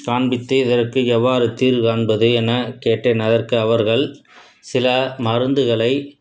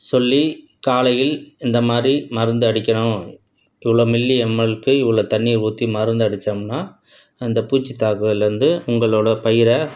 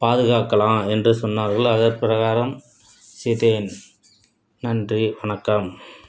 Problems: none marked